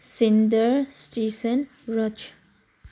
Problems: low volume